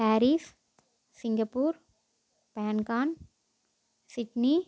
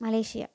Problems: background sounds at intervals